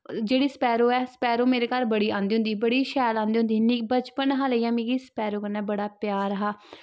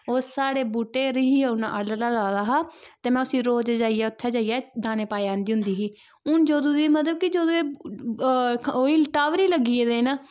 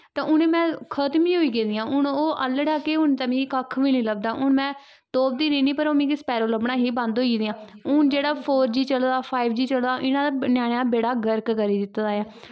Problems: background sounds at intervals